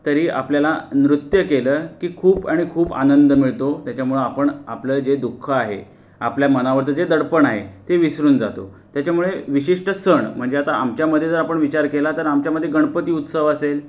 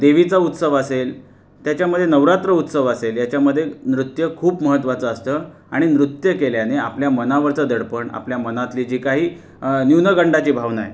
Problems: constant background noise